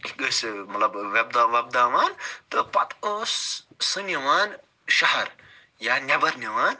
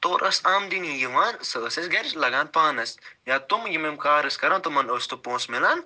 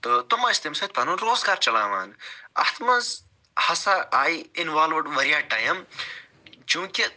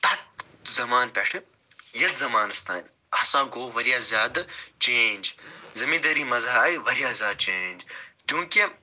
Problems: none marked